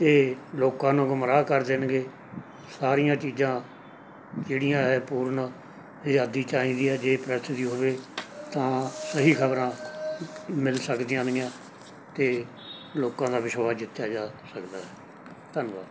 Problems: background sounds at intervals